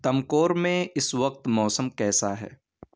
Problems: background sounds at intervals